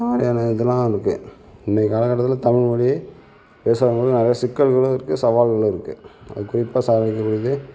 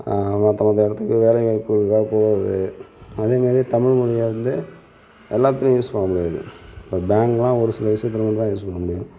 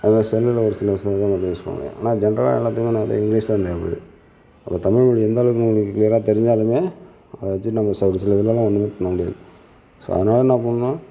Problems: none marked